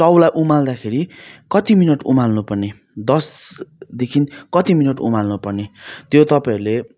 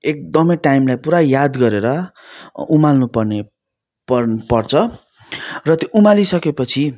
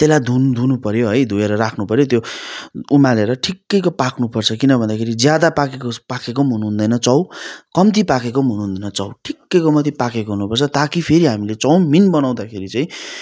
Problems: none marked